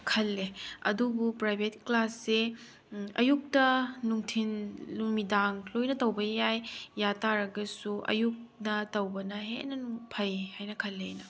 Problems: background sounds at intervals